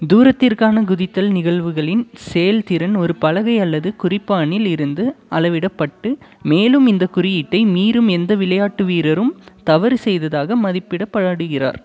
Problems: none marked